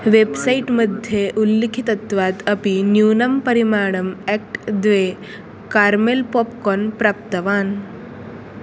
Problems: background sounds at intervals